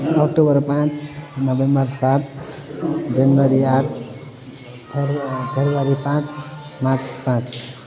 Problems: constant background noise